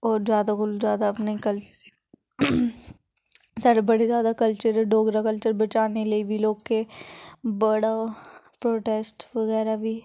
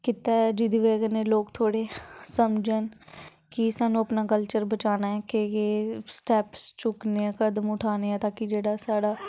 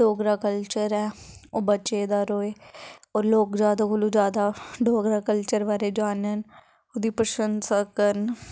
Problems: none marked